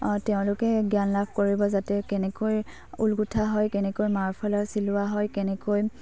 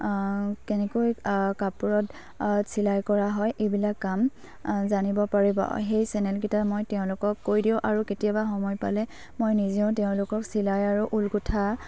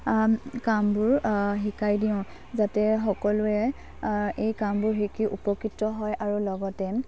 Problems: low volume